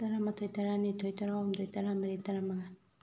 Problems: low volume